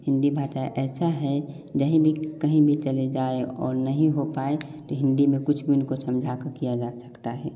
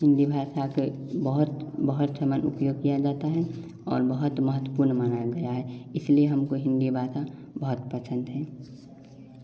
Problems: background sounds at intervals, background conversations at intervals